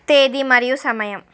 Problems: none marked